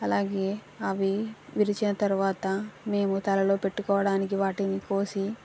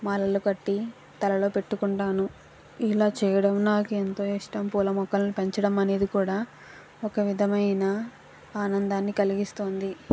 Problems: constant background noise